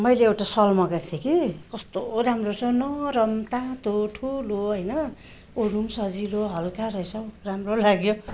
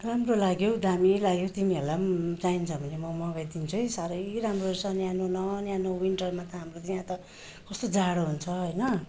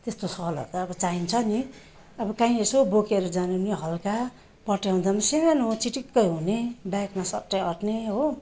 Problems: constant background noise